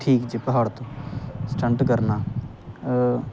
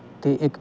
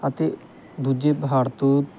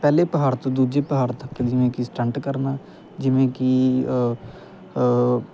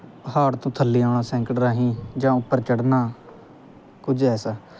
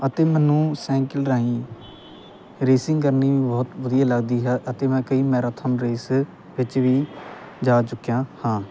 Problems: constant background noise